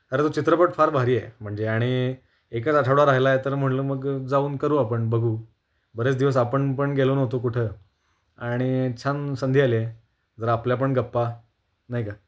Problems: constant background noise